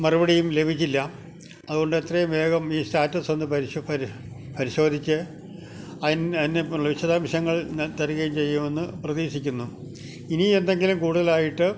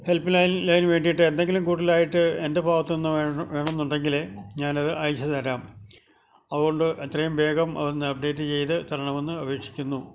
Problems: constant background noise, low volume